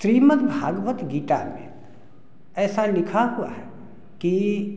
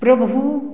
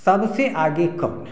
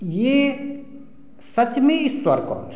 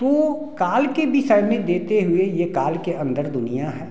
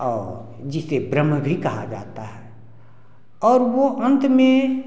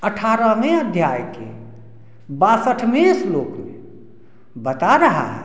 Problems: background sounds at intervals, background conversations at intervals